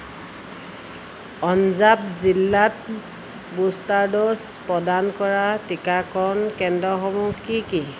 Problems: none marked